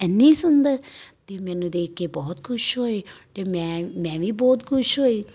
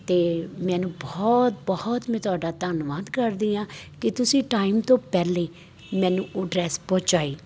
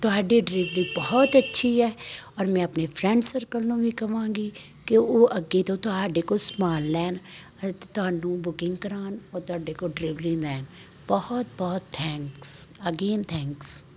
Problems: constant background noise